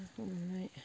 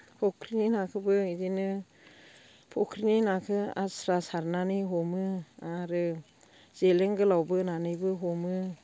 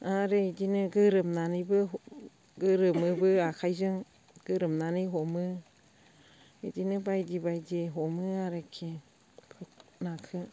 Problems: constant background noise